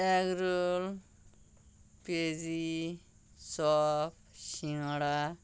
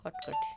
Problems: background sounds at intervals